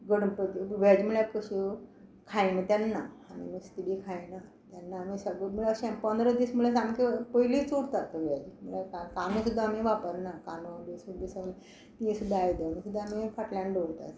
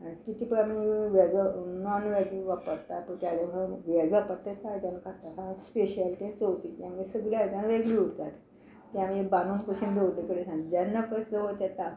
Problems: none marked